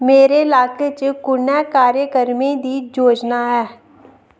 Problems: none marked